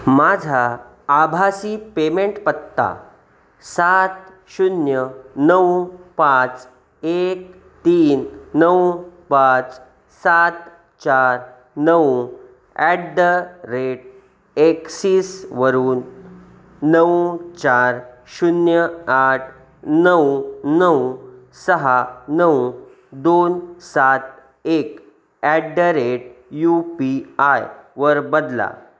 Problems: none marked